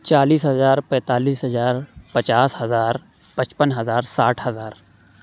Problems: none marked